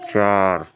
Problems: constant background noise, continuous background conversations